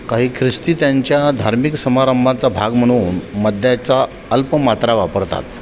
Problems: constant background noise